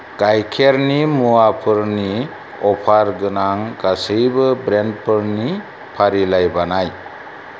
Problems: constant background noise